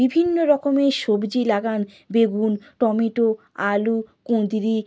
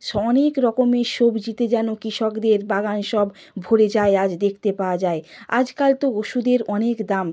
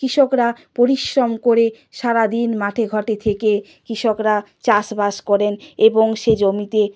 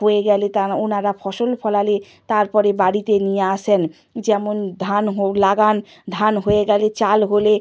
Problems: none marked